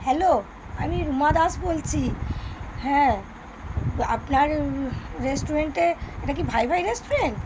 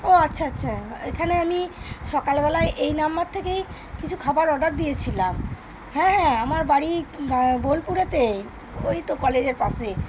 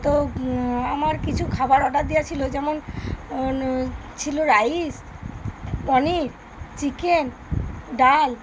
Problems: constant background noise, background conversations at intervals